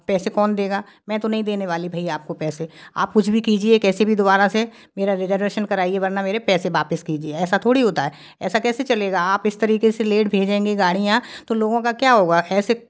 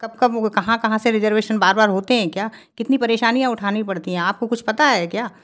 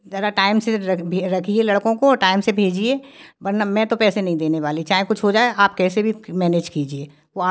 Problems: none marked